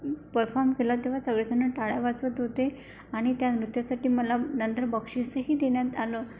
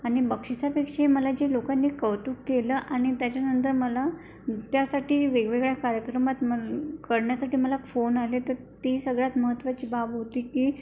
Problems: none marked